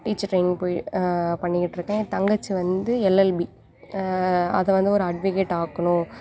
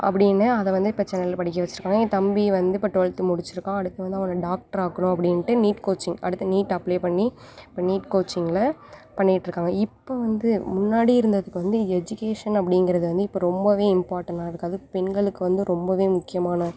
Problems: background sounds at intervals